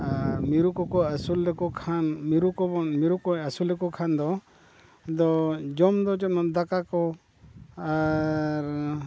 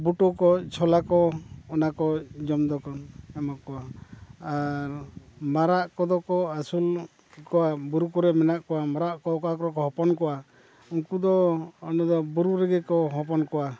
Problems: constant background noise